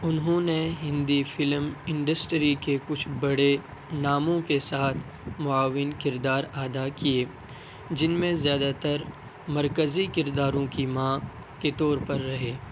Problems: constant background noise